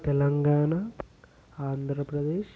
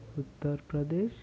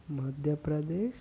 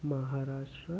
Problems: constant background noise, background conversations at intervals